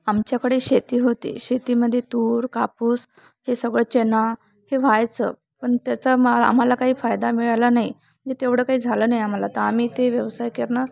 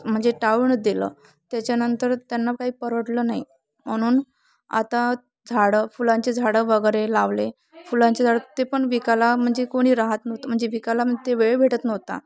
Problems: constant background noise, background conversations at intervals